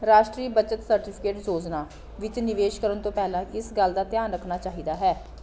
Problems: none marked